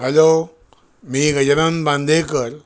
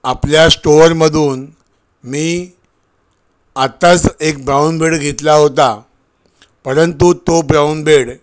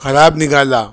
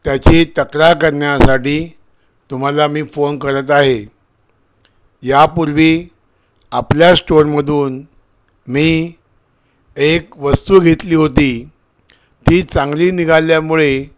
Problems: none marked